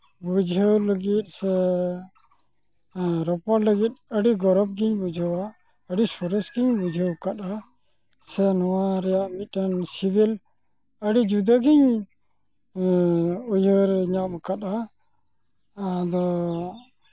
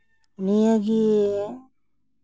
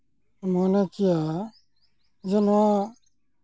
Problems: constant background noise